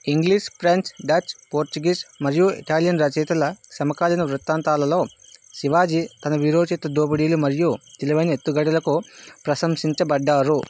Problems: constant background noise